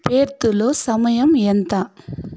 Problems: constant background noise